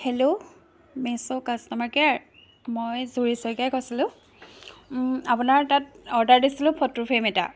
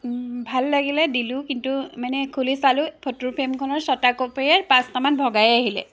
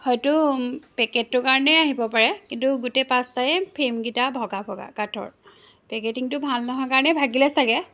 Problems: constant background noise